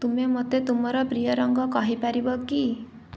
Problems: none marked